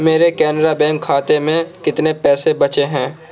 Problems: none marked